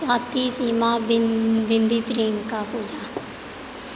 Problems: none marked